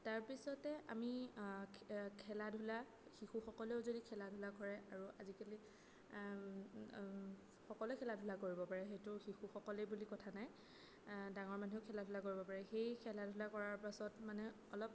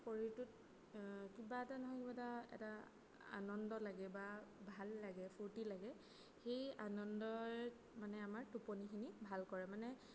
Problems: background sounds at intervals, low volume